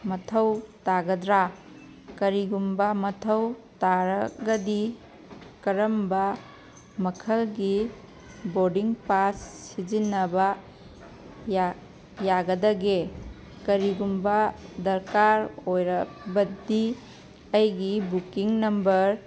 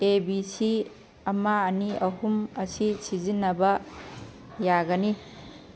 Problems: background sounds at intervals